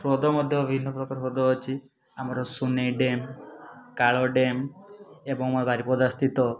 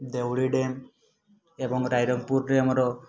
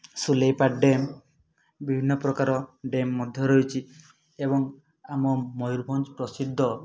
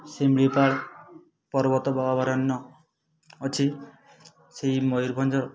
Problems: none marked